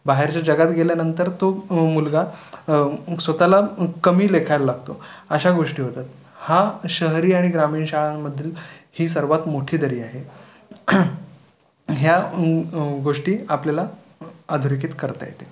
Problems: constant background noise, continuous background conversations